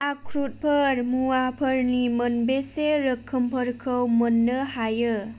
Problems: none marked